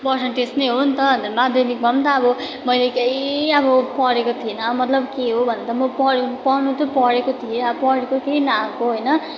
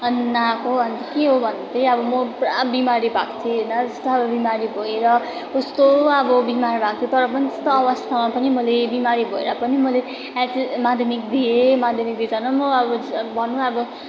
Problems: continuous background conversations